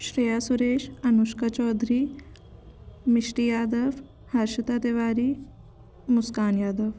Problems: constant background noise